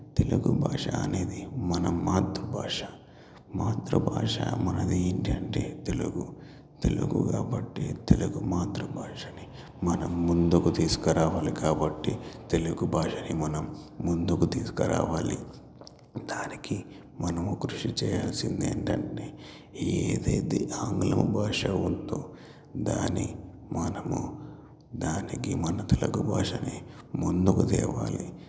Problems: none marked